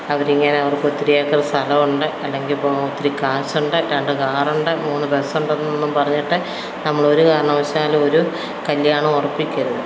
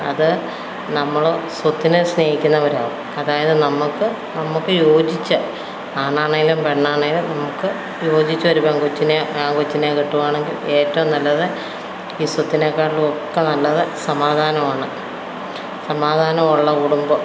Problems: background sounds at intervals